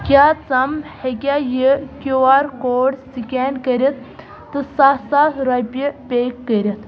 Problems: constant background noise